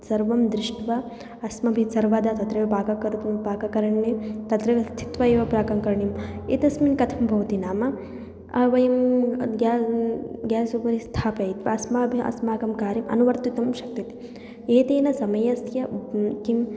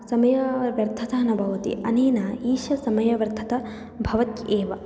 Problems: background sounds at intervals